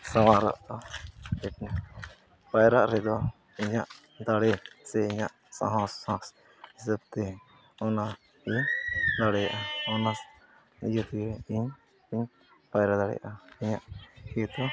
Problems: background sounds at intervals